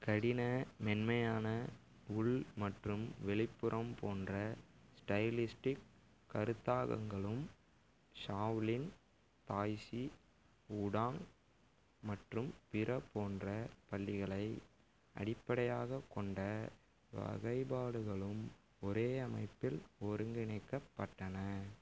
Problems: none marked